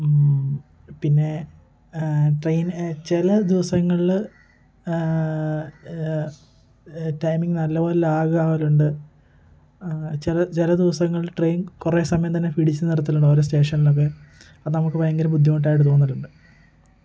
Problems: constant background noise, low volume